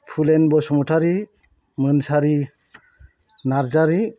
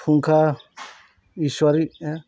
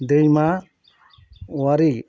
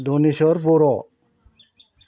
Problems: constant background noise